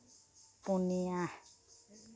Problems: constant background noise